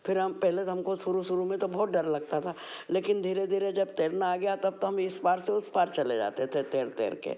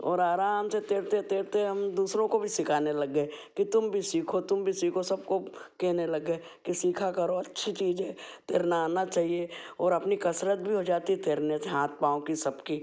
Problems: background sounds at intervals